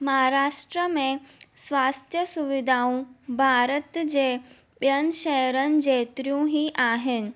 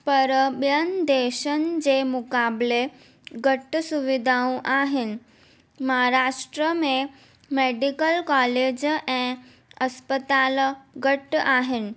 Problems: none marked